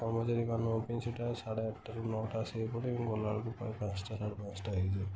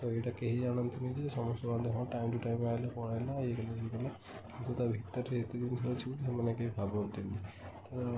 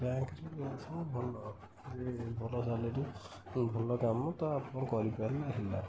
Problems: constant background noise